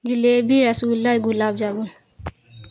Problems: constant background noise